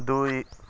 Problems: none marked